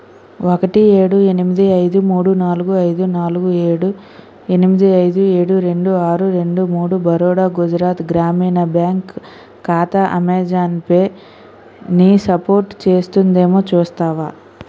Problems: constant background noise